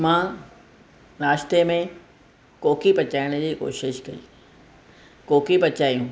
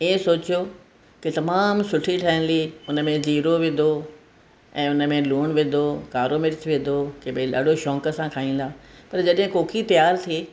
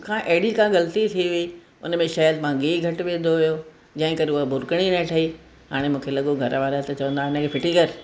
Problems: none marked